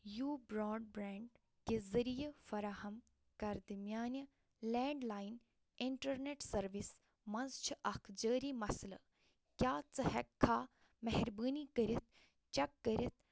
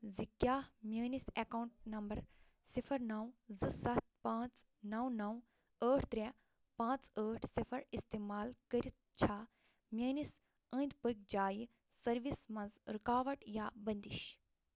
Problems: none marked